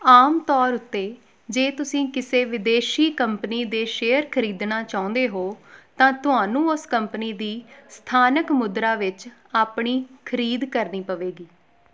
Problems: background sounds at intervals